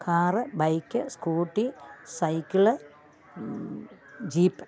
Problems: none marked